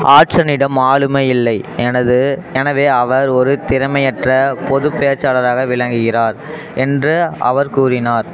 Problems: constant background noise